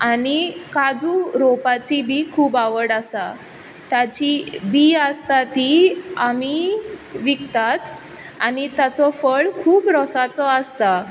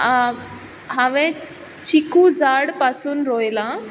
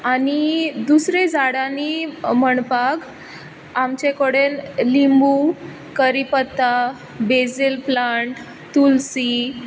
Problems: background sounds at intervals